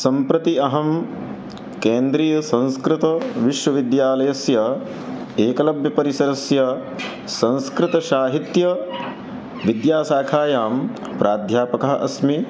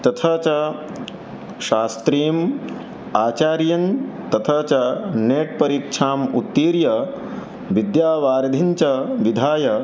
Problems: none marked